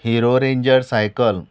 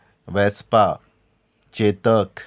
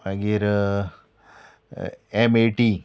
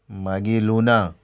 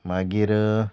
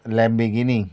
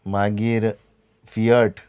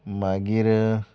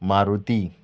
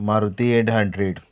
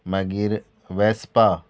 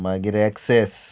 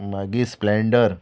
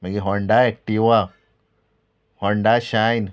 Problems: none marked